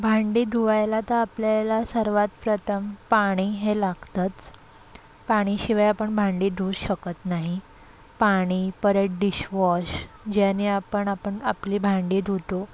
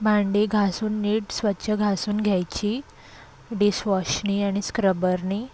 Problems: constant background noise, background conversations at intervals